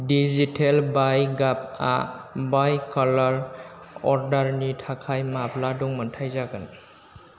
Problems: low volume